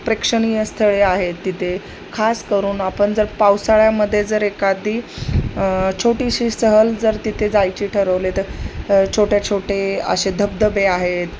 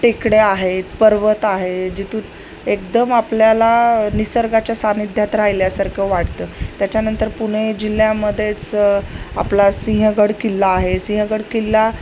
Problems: none marked